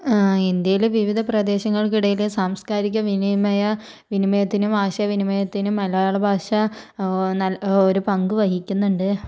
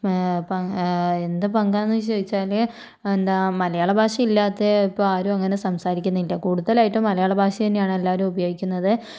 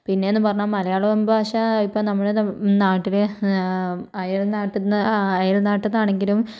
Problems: low volume